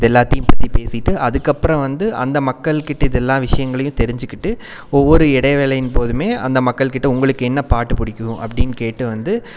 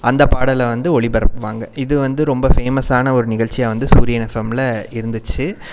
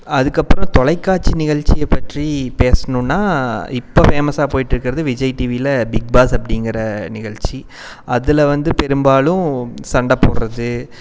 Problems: none marked